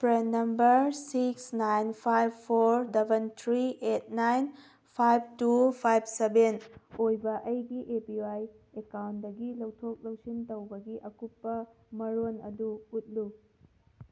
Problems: none marked